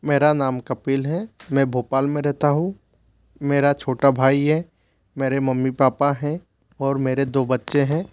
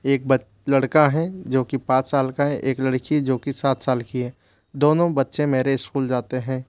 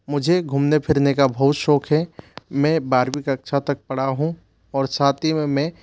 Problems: none marked